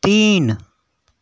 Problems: constant background noise